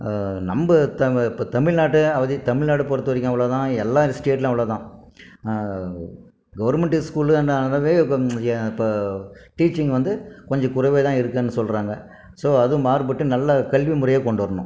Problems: none marked